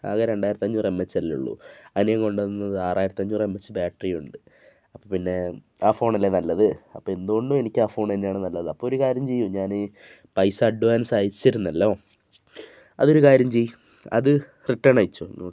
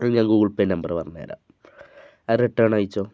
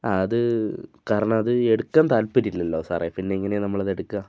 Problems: none marked